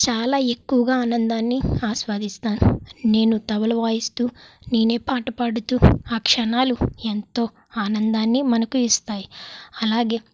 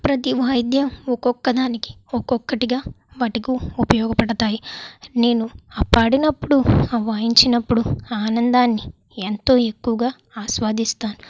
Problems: background sounds at intervals